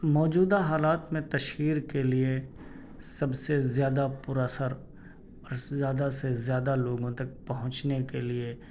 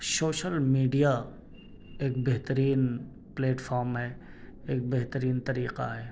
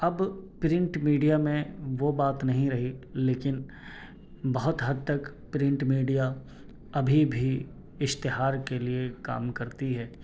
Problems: none marked